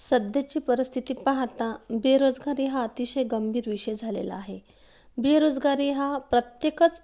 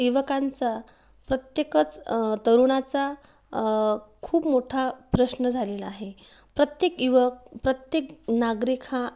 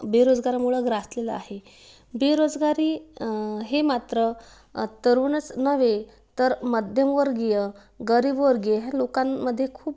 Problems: background sounds at intervals